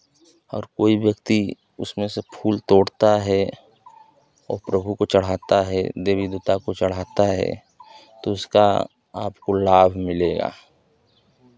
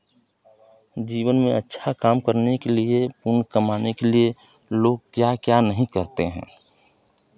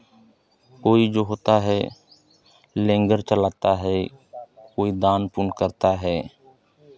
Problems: none marked